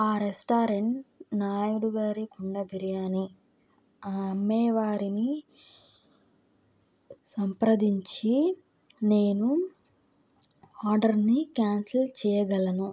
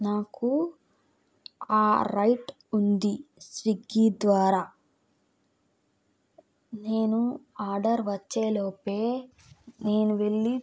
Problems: background sounds at intervals